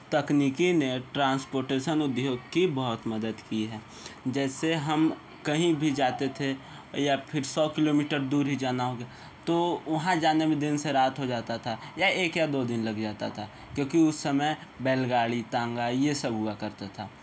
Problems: constant background noise